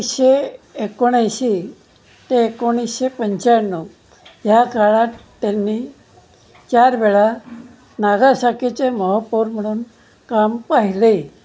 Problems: none marked